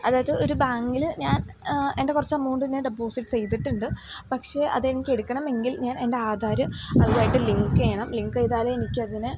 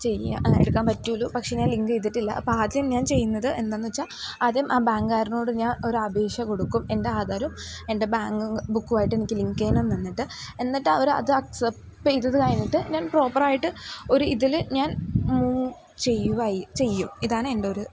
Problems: background sounds at intervals